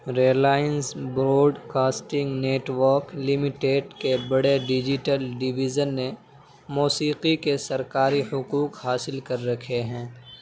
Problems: none marked